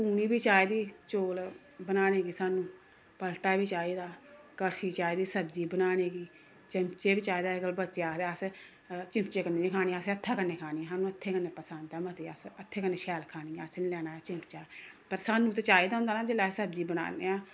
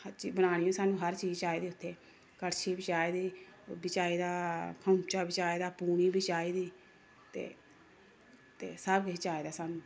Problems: constant background noise